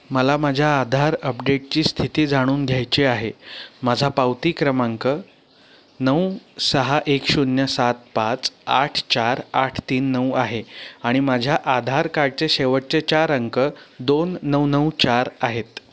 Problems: none marked